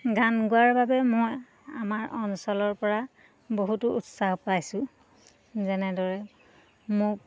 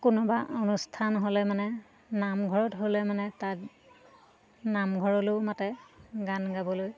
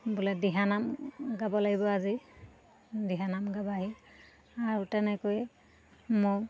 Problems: constant background noise, continuous background conversations